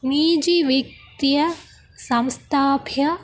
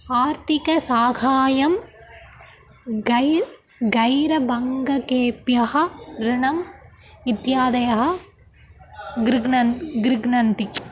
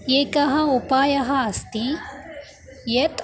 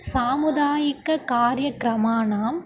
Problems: constant background noise, continuous background conversations